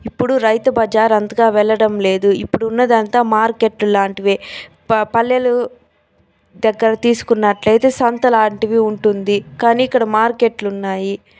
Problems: none marked